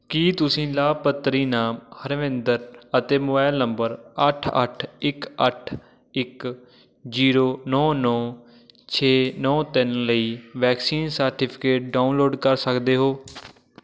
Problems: none marked